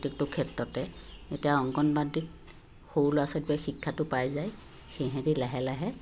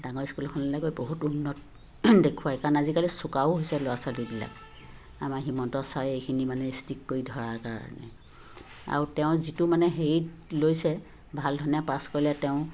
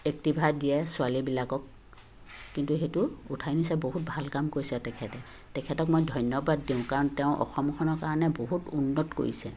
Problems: constant background noise